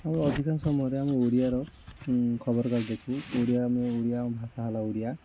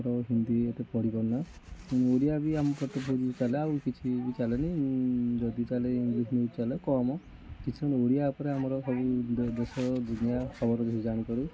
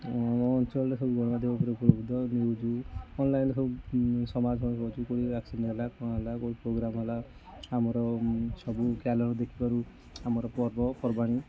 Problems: constant background noise, continuous background conversations, echo